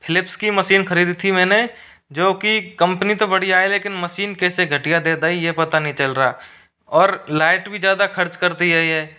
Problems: background sounds at intervals